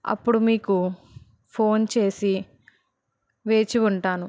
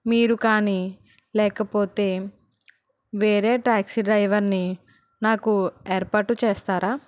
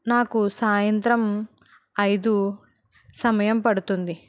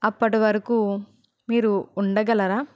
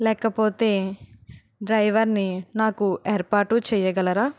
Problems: none marked